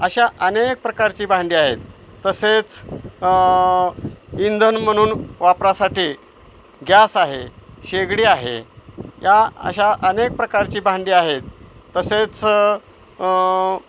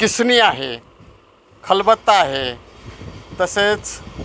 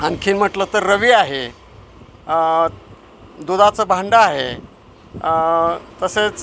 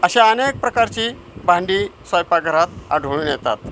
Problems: constant background noise, background conversations at intervals